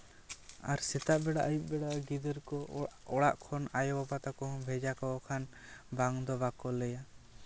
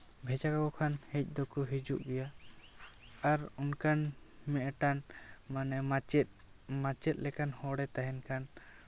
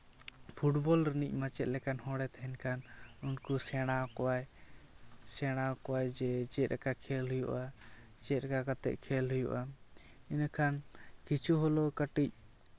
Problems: none marked